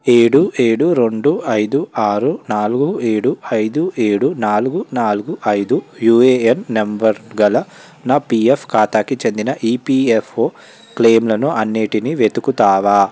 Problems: none marked